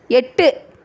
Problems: none marked